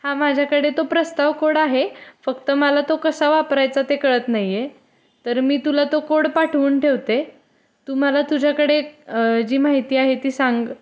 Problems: none marked